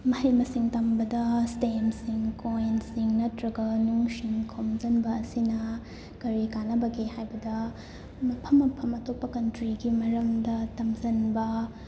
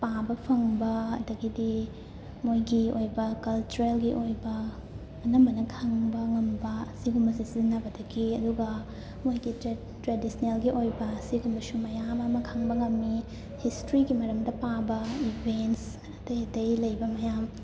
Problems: constant background noise, background conversations at intervals